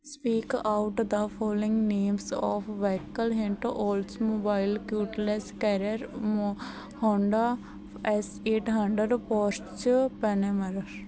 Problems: none marked